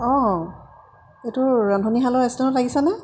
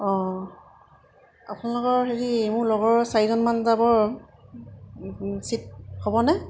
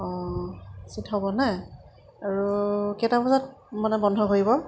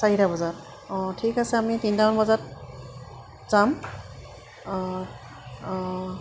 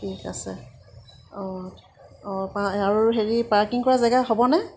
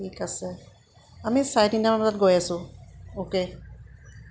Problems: constant background noise